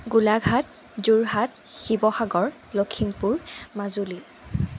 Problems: constant background noise